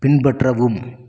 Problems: none marked